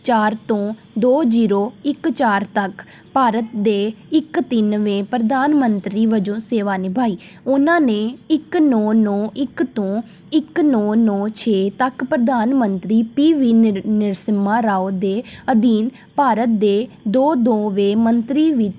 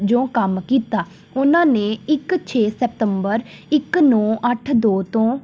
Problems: none marked